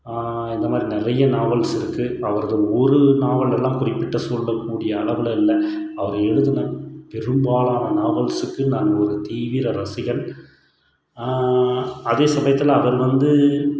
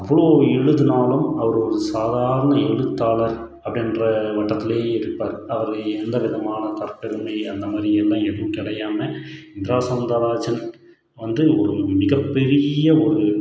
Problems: background sounds at intervals